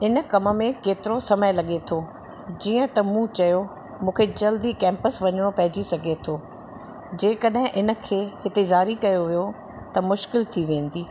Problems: constant background noise